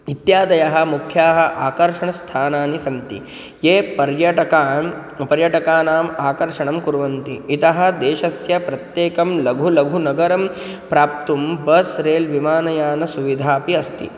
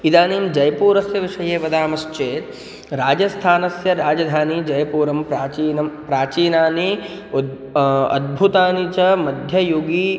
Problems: none marked